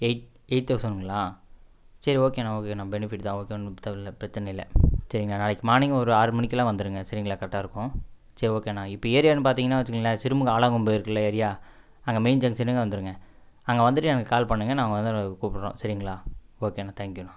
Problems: none marked